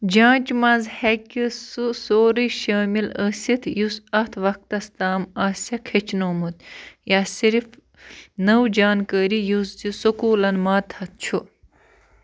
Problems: constant background noise